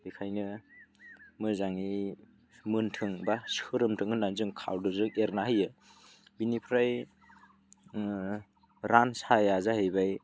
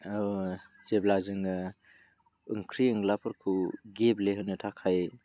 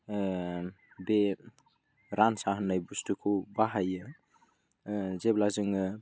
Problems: none marked